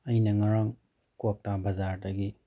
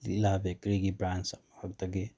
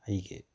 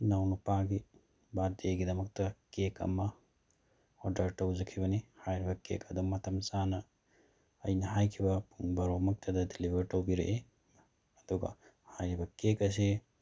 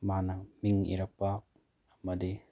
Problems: none marked